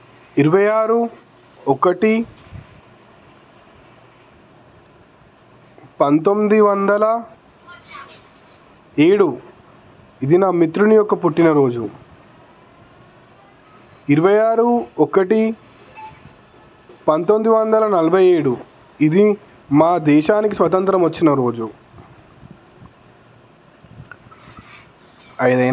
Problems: constant background noise, background conversations at intervals